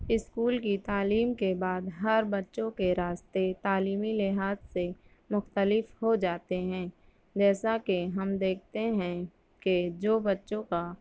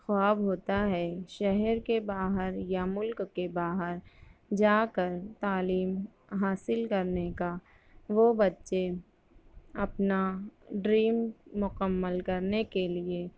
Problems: none marked